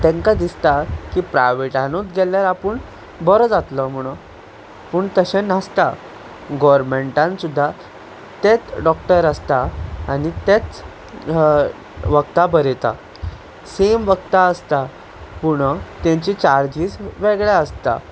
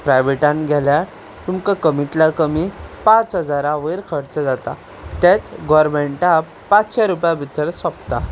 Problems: constant background noise